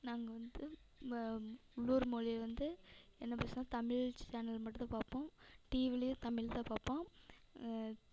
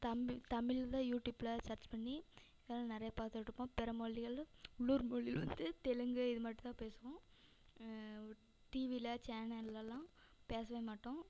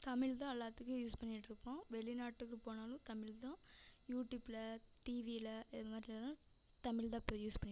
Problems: none marked